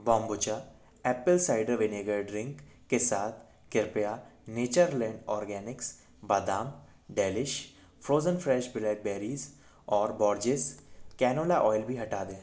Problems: background sounds at intervals